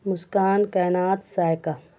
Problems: none marked